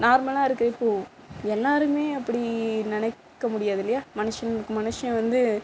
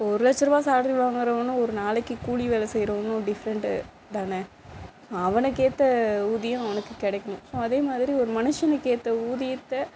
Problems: constant background noise